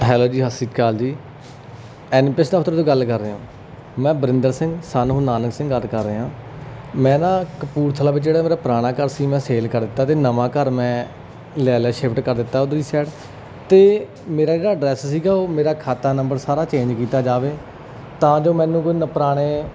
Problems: constant background noise